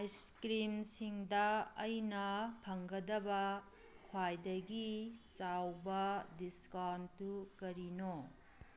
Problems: background sounds at intervals